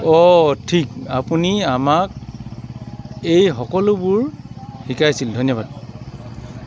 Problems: none marked